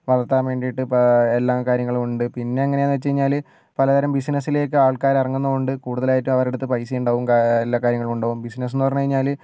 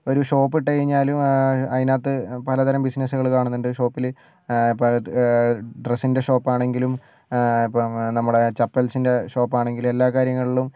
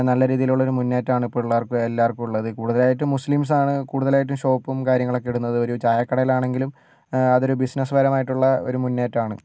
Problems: none marked